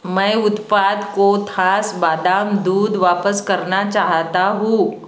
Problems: none marked